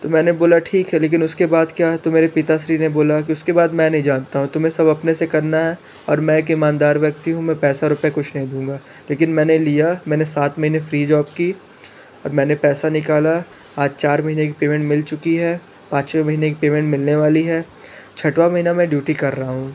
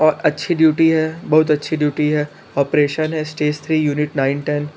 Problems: constant background noise, background conversations at intervals